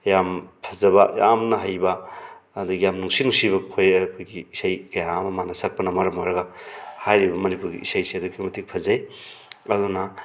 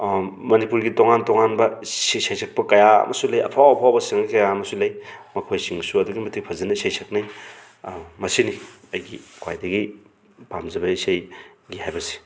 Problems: background sounds at intervals